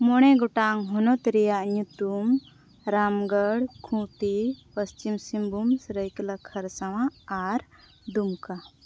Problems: none marked